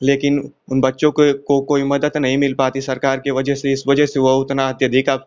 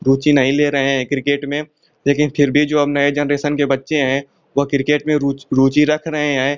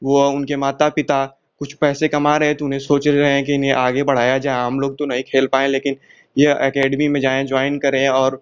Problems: constant background noise